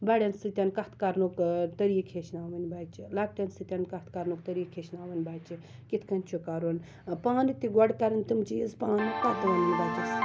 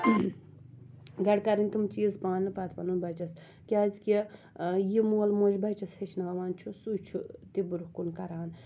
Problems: background sounds at intervals